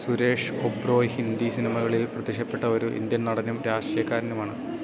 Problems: none marked